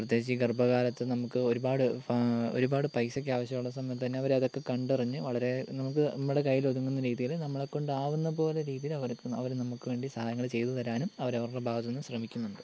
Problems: constant background noise